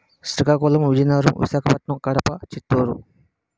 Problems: background sounds at intervals